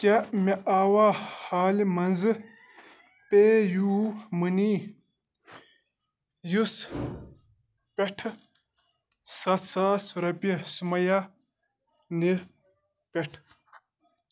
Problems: background sounds at intervals